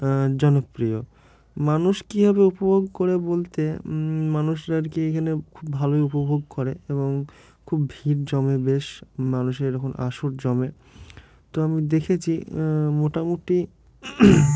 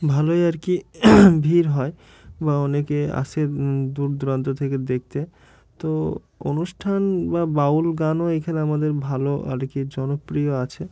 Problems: none marked